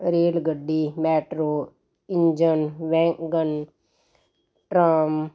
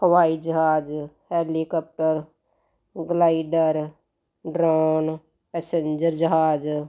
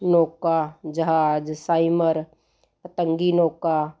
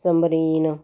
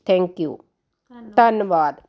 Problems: constant background noise